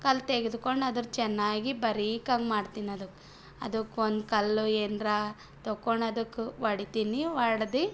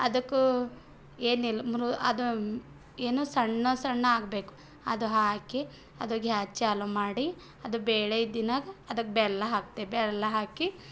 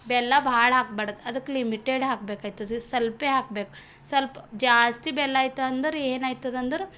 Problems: background sounds at intervals